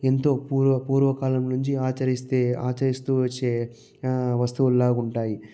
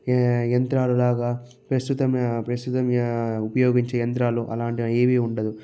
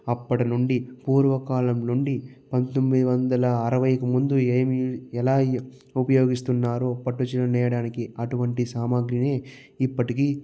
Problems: low volume